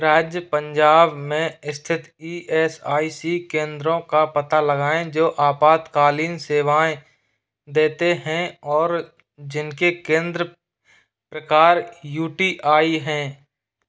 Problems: none marked